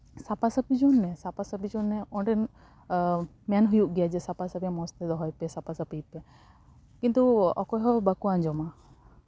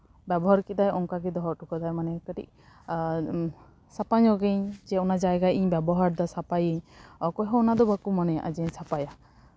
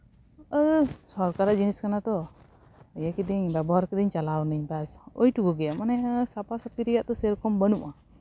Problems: background sounds at intervals